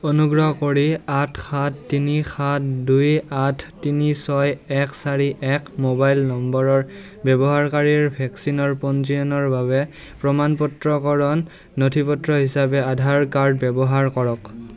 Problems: continuous background conversations